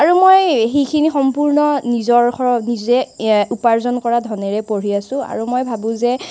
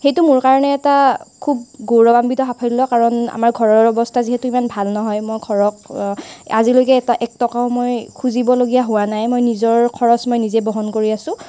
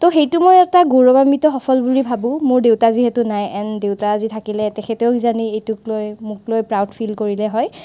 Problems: none marked